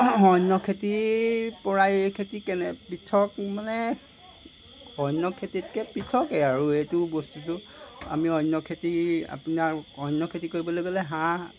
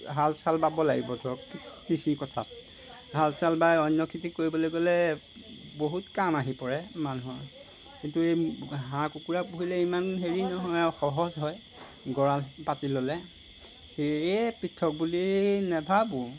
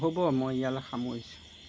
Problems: background sounds at intervals